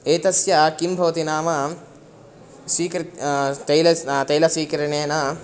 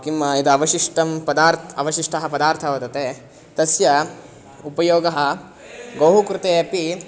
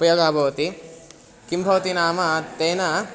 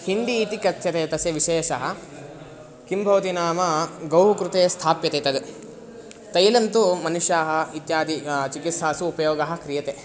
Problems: constant background noise, continuous background conversations